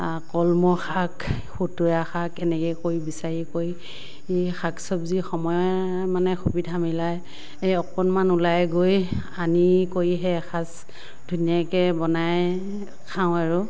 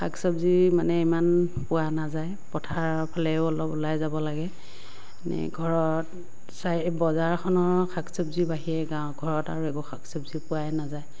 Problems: none marked